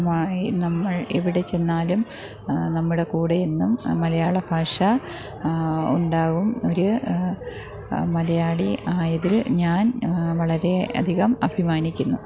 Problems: background sounds at intervals